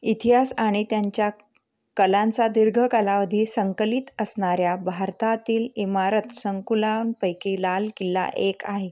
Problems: none marked